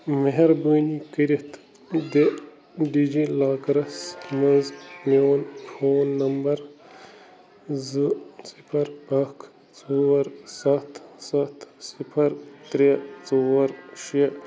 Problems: constant background noise